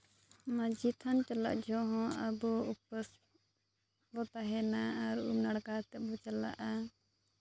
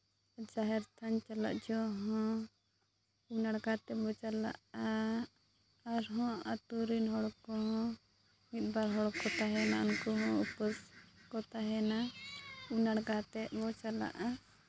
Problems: constant background noise, low volume